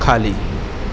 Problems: constant background noise